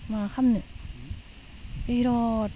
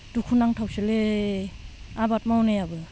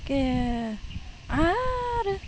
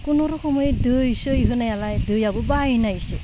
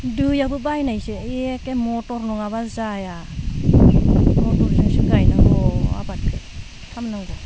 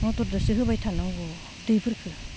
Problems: background sounds at intervals, low volume